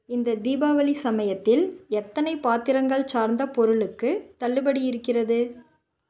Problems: none marked